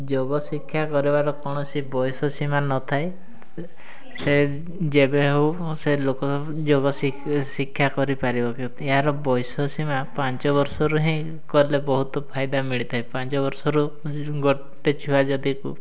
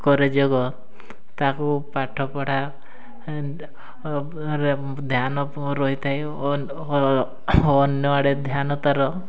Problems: constant background noise, continuous background conversations